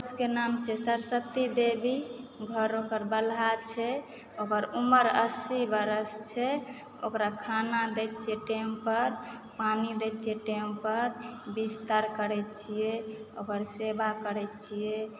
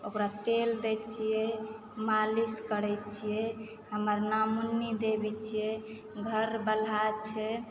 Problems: background sounds at intervals, background conversations at intervals